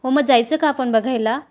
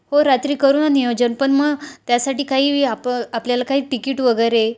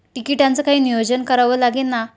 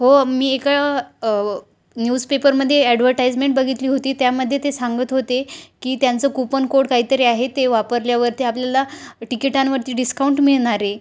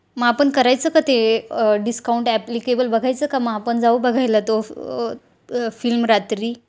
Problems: none marked